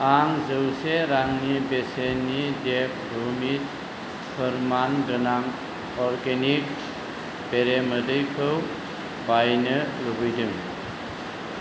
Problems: low volume